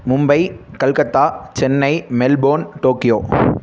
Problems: constant background noise